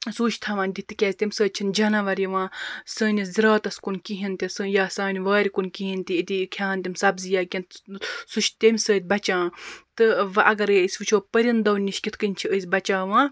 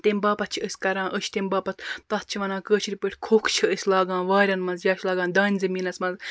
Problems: constant background noise